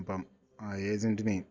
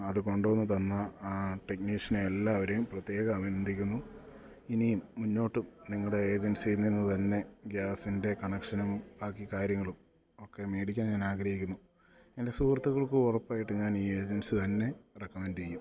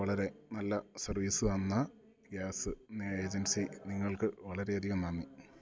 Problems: low volume